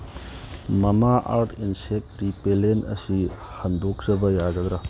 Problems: background sounds at intervals